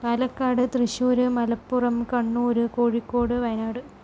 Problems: low volume